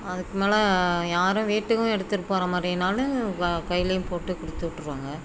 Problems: background sounds at intervals, background conversations at intervals